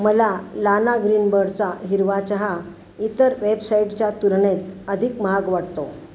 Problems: none marked